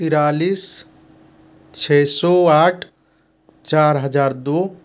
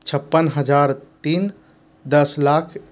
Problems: none marked